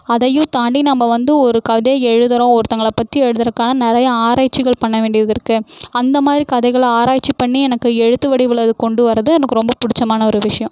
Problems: none marked